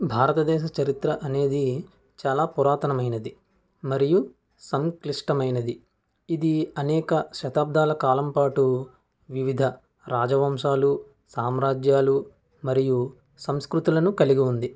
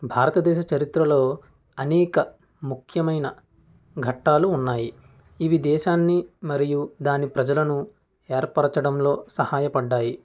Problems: none marked